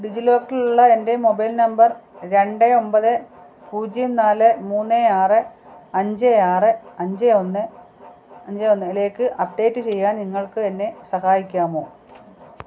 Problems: low volume